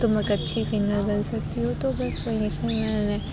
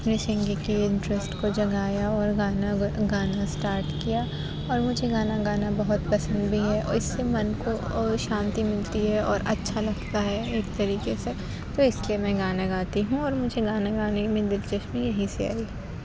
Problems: constant background noise, background conversations at intervals